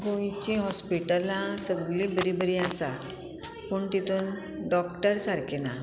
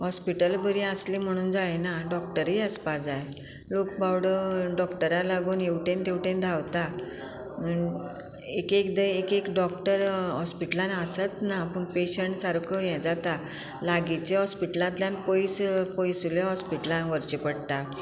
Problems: constant background noise